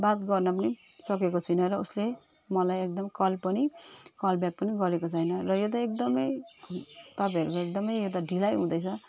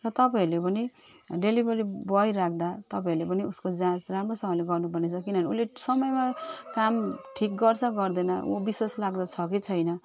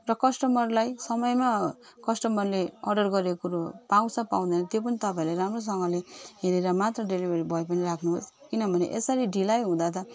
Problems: none marked